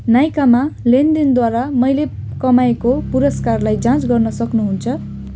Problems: constant background noise